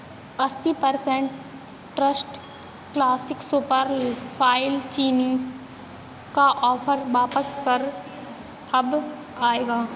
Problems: constant background noise